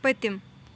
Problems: none marked